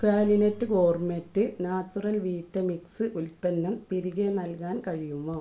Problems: low volume